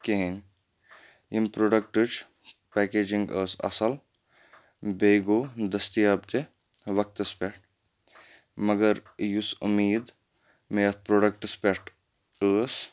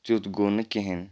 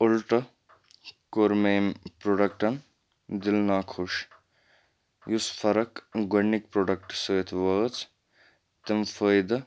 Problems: none marked